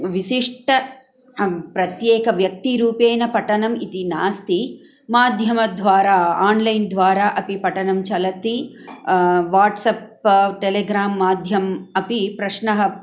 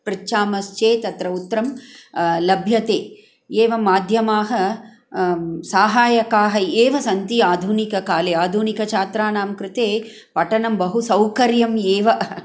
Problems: background sounds at intervals